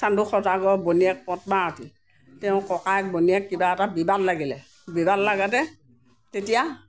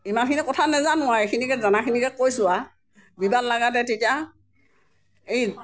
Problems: none marked